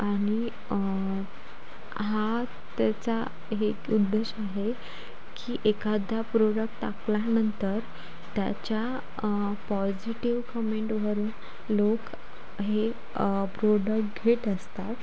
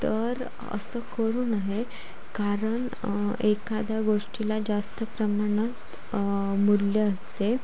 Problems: constant background noise